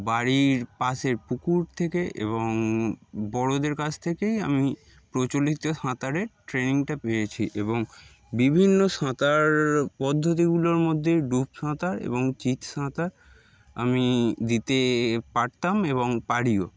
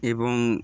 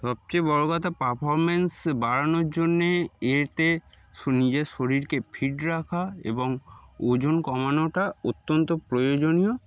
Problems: background sounds at intervals